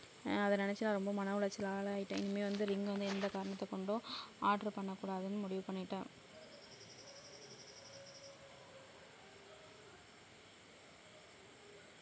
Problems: low volume